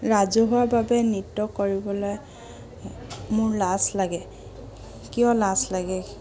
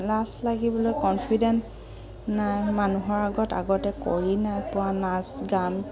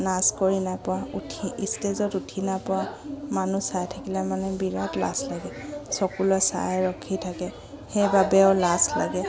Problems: none marked